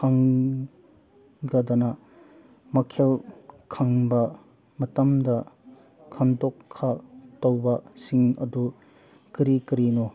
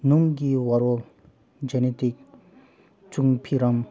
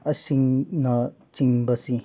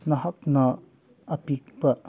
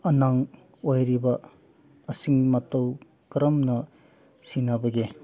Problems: background conversations at intervals